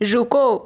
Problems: constant background noise